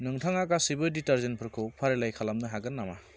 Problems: none marked